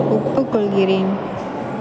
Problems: constant background noise, low volume